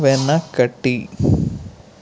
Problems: constant background noise